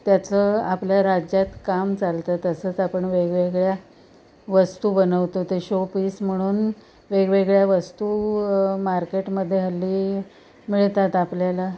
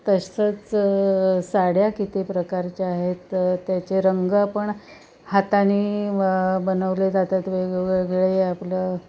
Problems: constant background noise, continuous background conversations